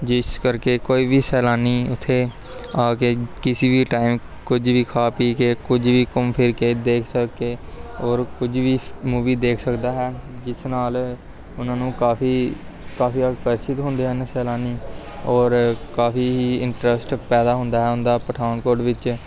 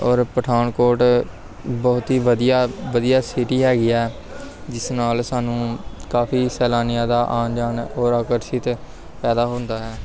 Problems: continuous background conversations